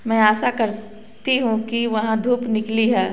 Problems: background sounds at intervals